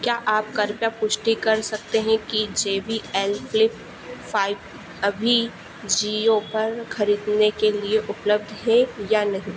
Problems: constant background noise